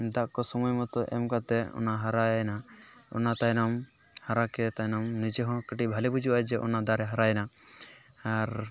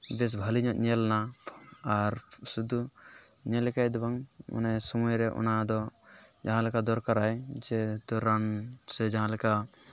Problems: background conversations at intervals